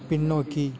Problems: background conversations at intervals